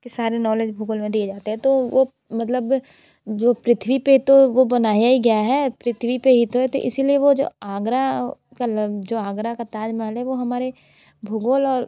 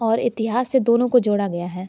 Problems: constant background noise, background conversations at intervals